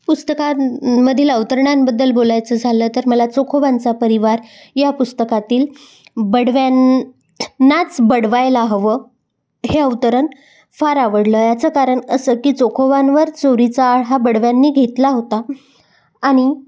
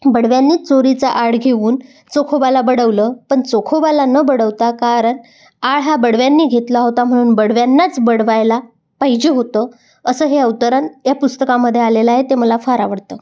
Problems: background sounds at intervals